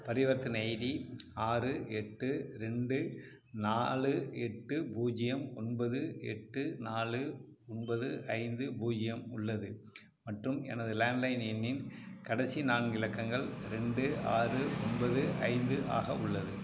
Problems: background sounds at intervals